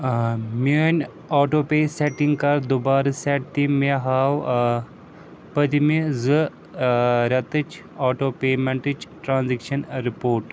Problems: background sounds at intervals